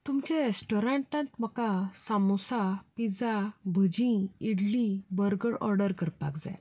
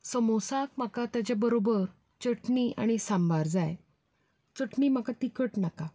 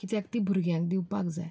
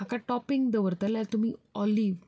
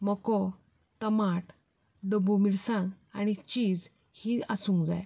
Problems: none marked